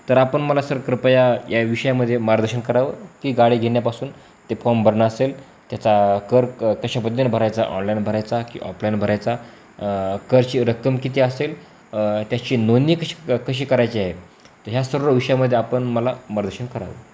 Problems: constant background noise, background conversations at intervals